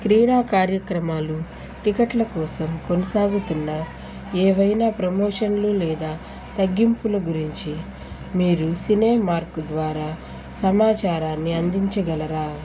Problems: constant background noise